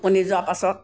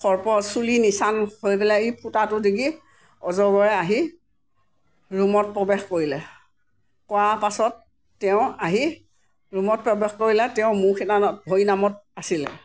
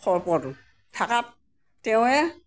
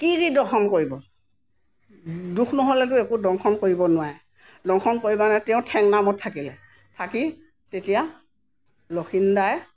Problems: none marked